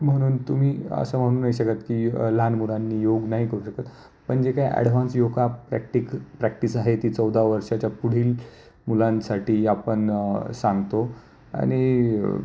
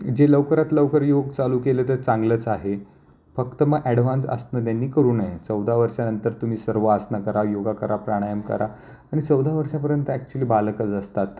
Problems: constant background noise, low volume